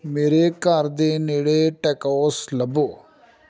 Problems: background conversations at intervals